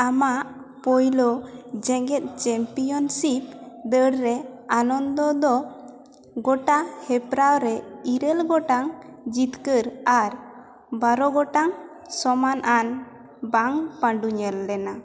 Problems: constant background noise, background conversations at intervals, echo